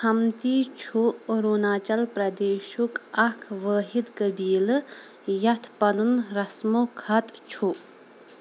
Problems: constant background noise